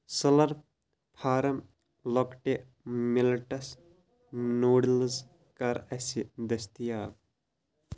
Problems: constant background noise